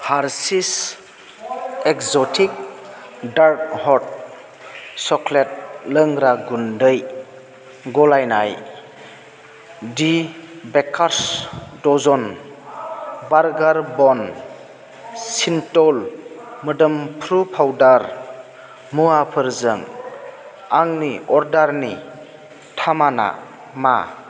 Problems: constant background noise